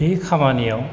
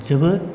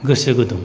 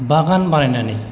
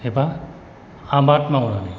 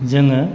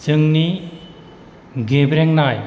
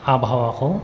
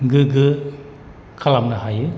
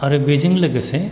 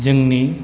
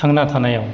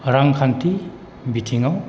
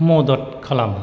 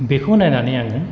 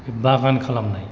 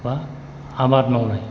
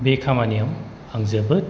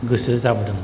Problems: constant background noise